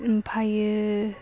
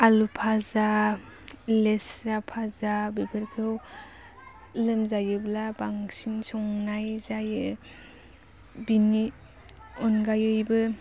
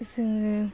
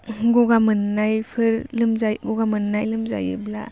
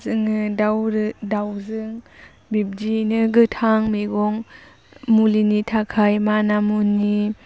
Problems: low volume